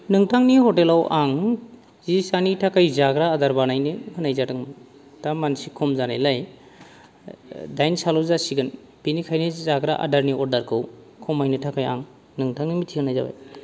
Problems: low volume